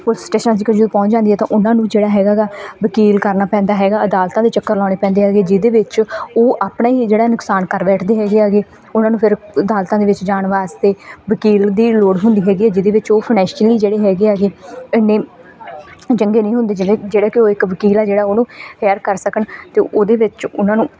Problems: background conversations at intervals